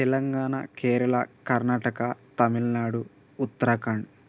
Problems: constant background noise